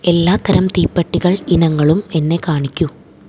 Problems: low volume